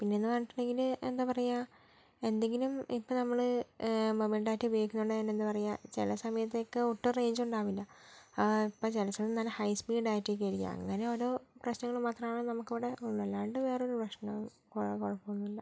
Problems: low volume